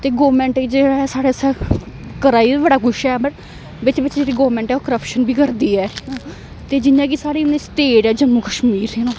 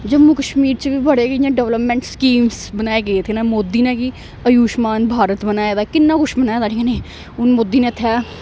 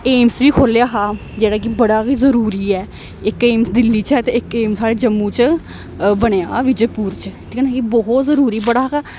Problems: constant background noise